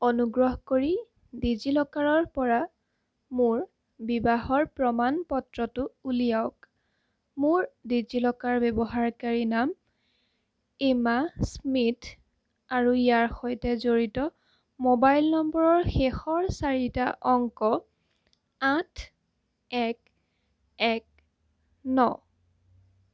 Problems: none marked